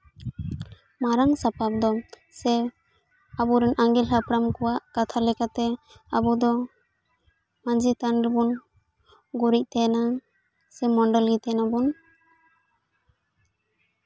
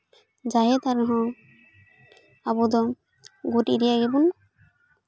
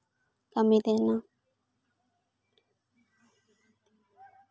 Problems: continuous background conversations